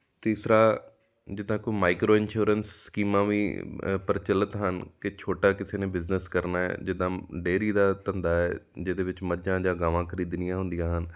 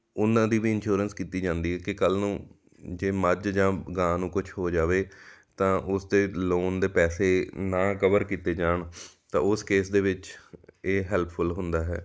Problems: background sounds at intervals